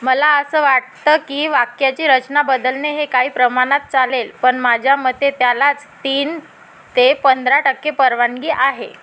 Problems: constant background noise